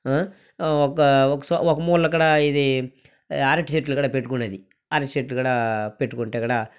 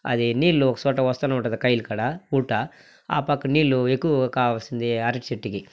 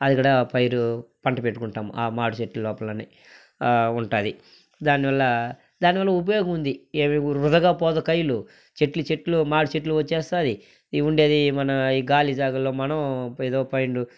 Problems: background sounds at intervals